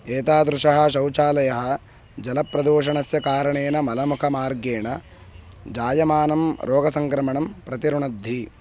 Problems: background sounds at intervals